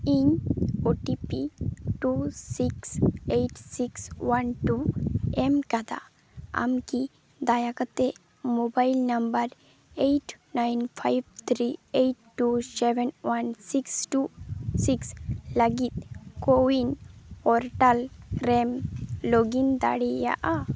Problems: constant background noise